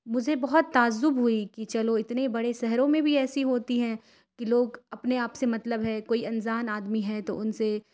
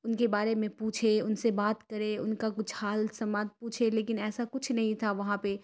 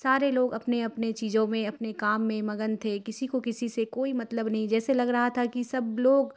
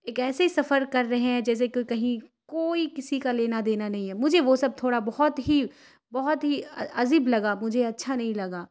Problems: none marked